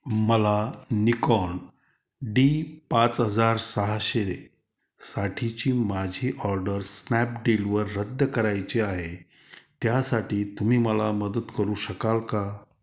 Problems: background sounds at intervals